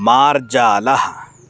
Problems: constant background noise